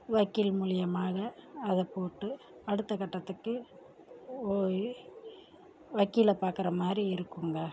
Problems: low volume